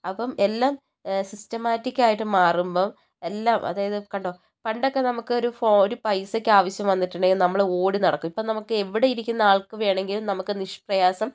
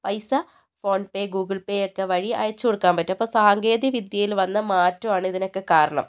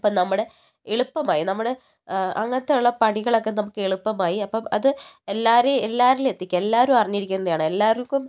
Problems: none marked